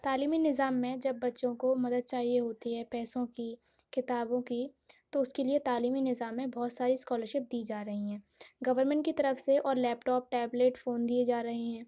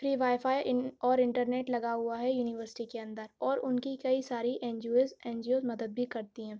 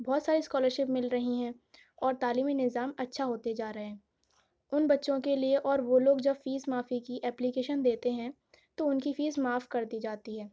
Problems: none marked